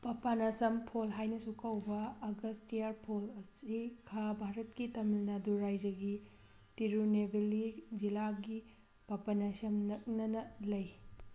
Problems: constant background noise